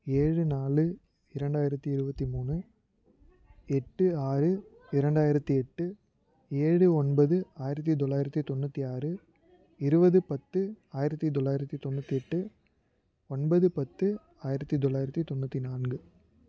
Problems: none marked